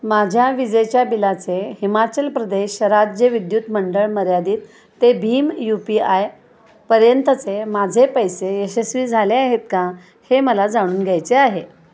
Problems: constant background noise, continuous background conversations